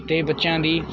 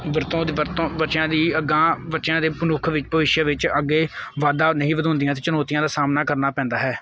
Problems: none marked